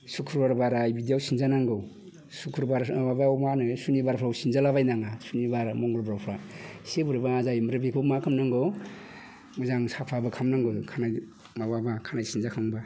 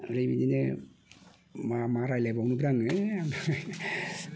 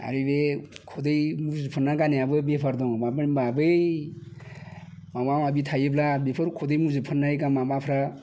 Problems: none marked